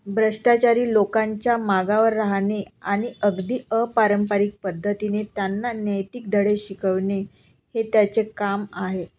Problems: constant background noise